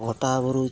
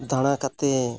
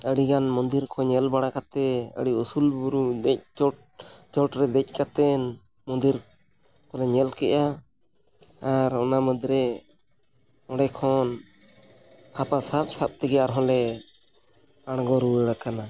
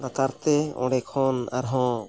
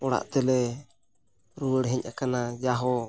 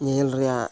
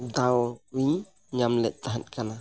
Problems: background sounds at intervals